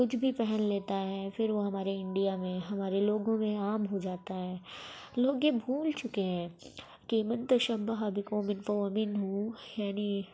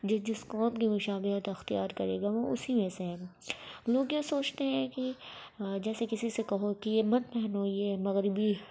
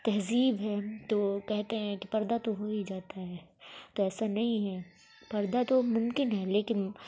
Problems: background sounds at intervals